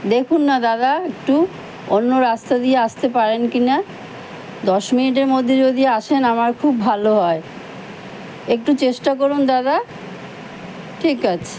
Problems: constant background noise